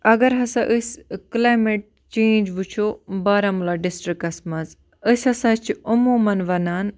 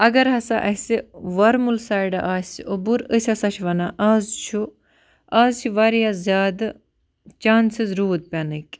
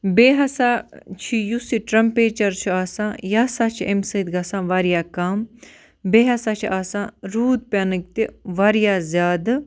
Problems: constant background noise